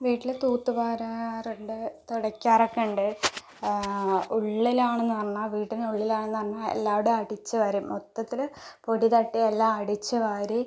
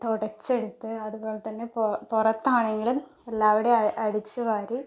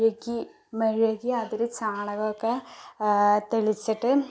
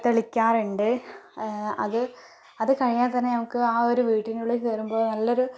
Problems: none marked